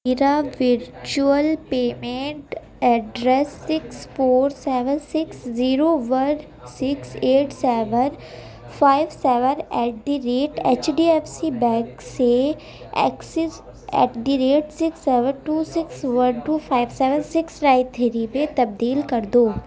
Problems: constant background noise, background conversations at intervals